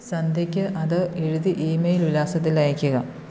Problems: none marked